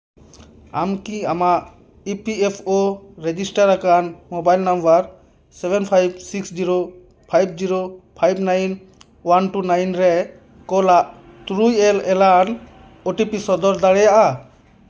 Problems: constant background noise